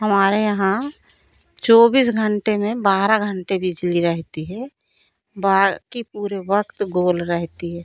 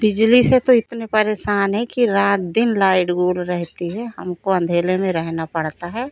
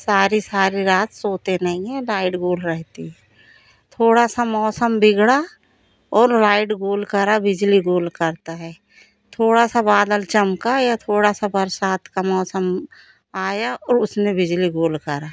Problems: none marked